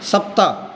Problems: none marked